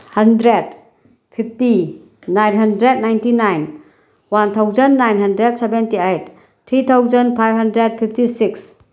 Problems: none marked